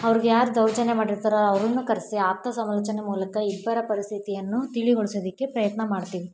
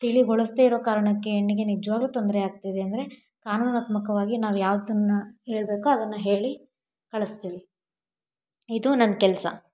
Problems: background sounds at intervals